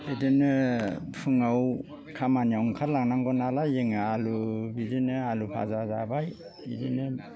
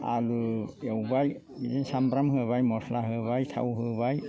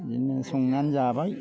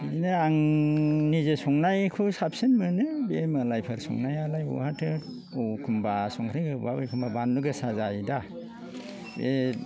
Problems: low volume